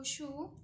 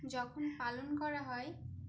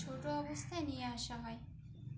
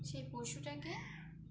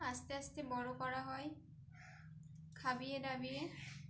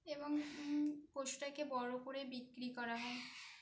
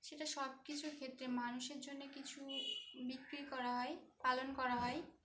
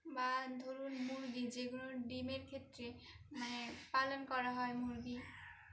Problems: constant background noise